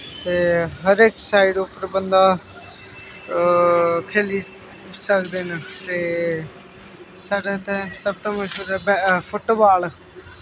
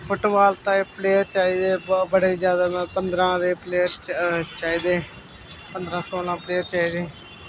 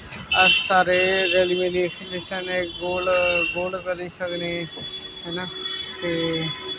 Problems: constant background noise